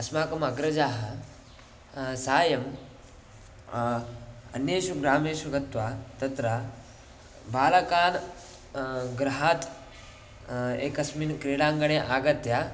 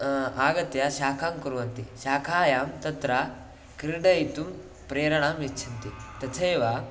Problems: background sounds at intervals